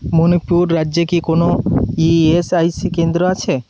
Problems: constant background noise